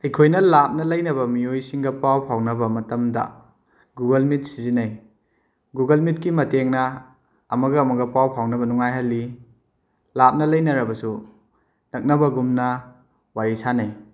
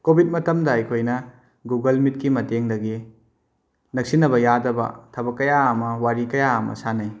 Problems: none marked